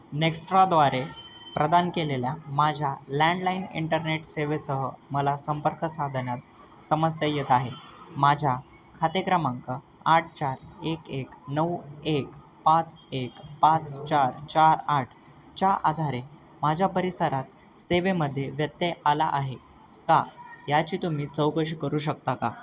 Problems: constant background noise, background conversations at intervals